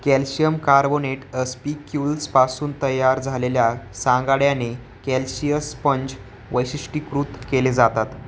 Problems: none marked